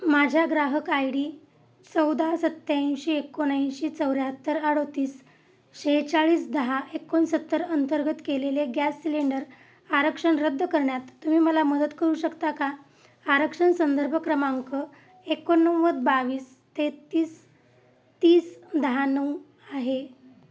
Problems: constant background noise